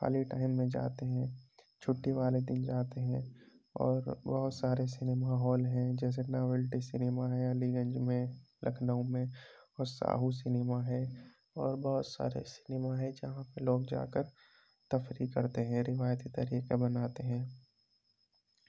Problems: constant background noise, low volume